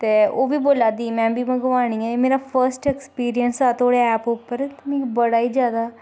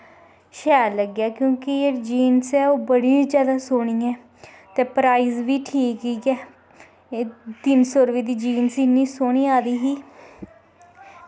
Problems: background sounds at intervals, echo